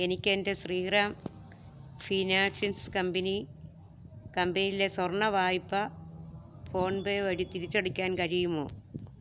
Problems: low volume